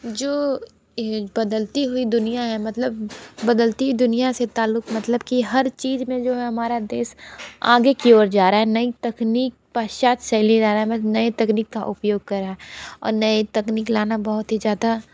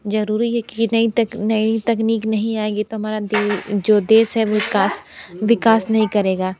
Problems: background conversations at intervals